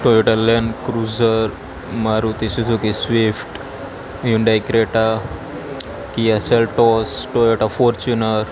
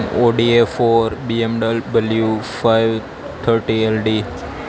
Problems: constant background noise